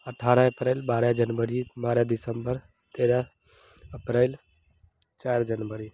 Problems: constant background noise